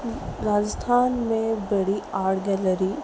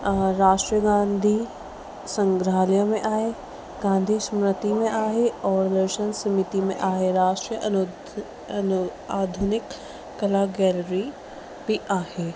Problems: constant background noise, echo